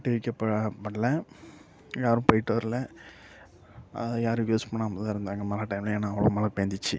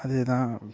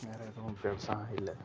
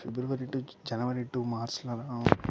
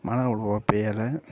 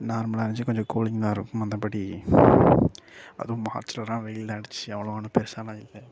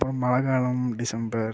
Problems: low volume